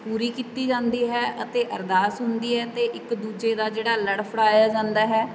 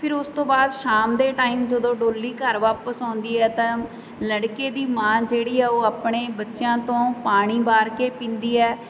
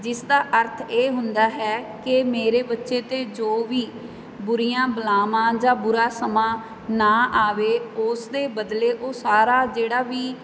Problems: none marked